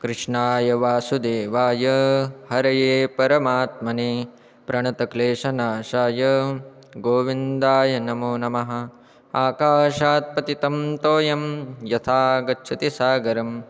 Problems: constant background noise, background conversations at intervals